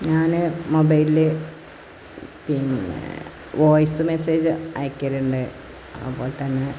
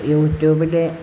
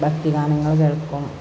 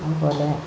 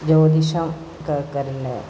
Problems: constant background noise